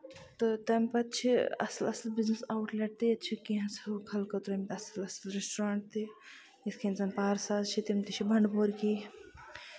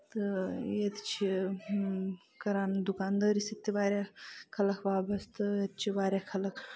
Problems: constant background noise